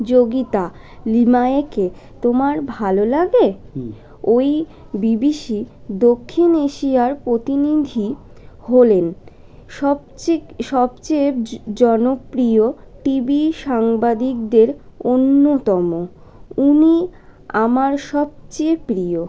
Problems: continuous background conversations